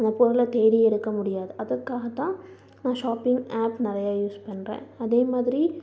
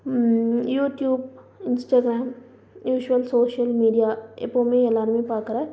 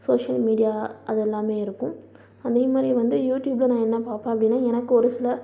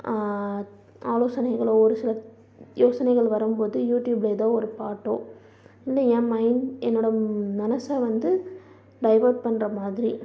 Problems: background sounds at intervals, low volume